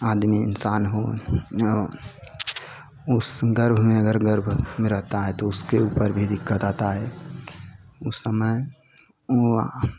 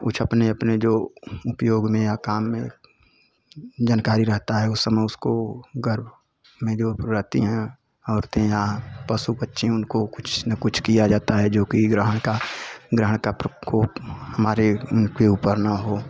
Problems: constant background noise, continuous background conversations